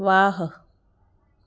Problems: background sounds at intervals